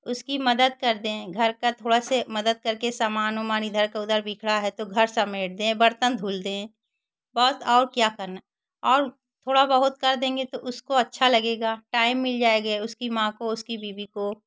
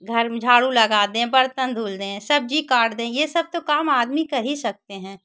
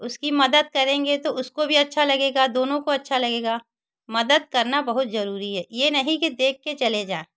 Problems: constant background noise